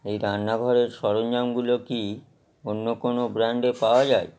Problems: background sounds at intervals